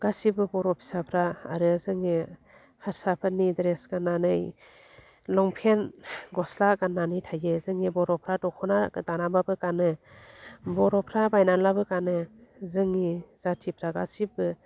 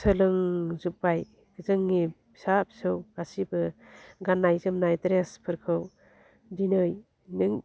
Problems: low volume